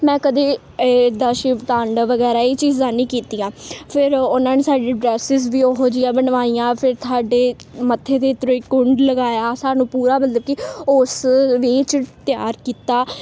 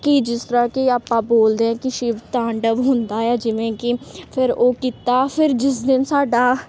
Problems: constant background noise